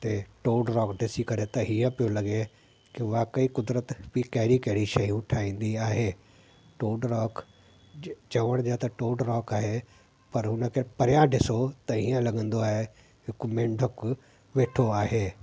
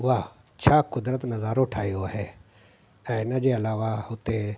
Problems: constant background noise